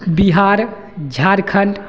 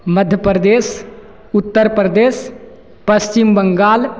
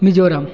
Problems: none marked